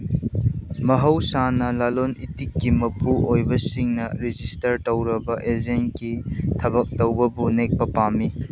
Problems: constant background noise